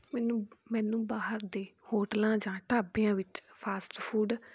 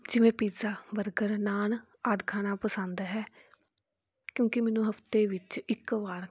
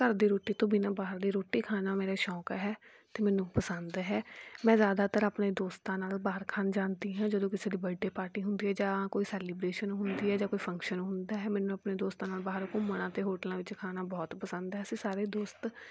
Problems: background sounds at intervals